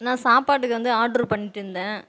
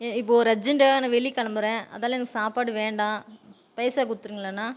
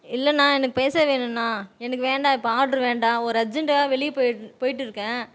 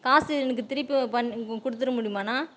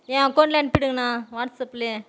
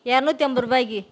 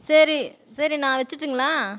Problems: background sounds at intervals